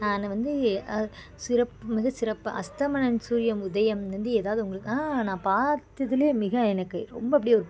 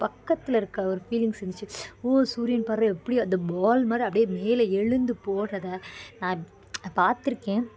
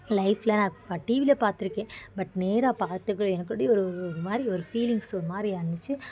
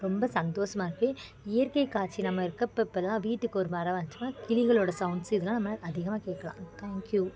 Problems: constant background noise, continuous background conversations